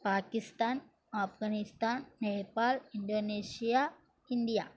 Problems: none marked